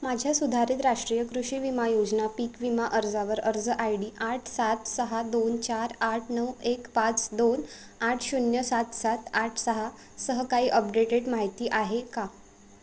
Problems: constant background noise